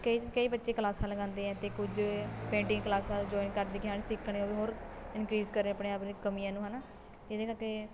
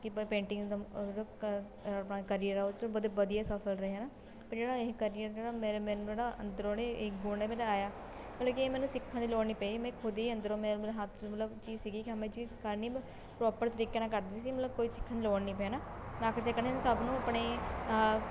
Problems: constant background noise